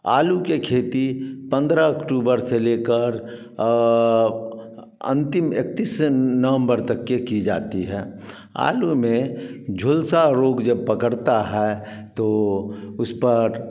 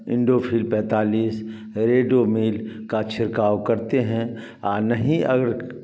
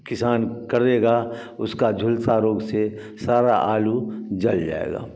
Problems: none marked